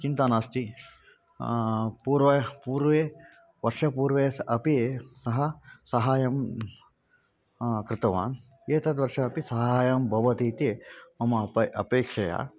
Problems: background sounds at intervals